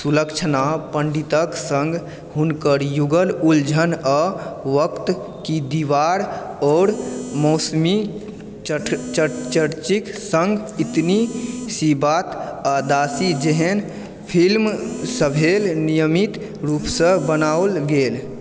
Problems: constant background noise